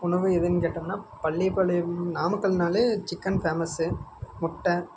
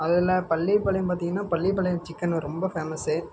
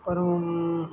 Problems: none marked